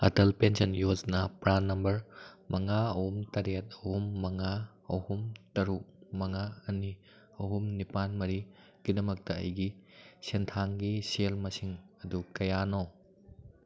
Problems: none marked